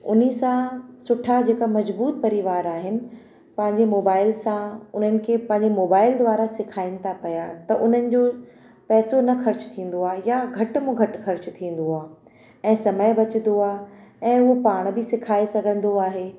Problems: constant background noise, echo